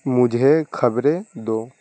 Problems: constant background noise